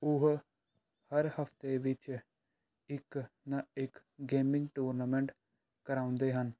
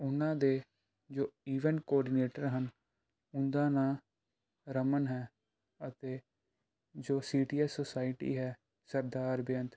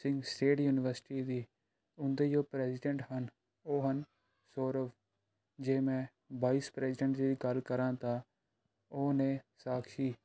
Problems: background sounds at intervals